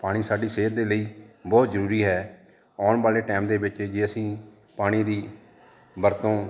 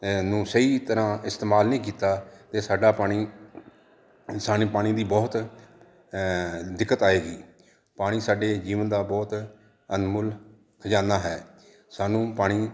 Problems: none marked